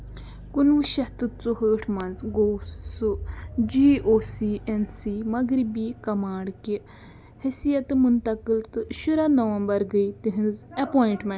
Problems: none marked